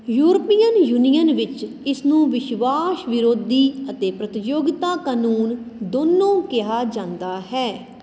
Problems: constant background noise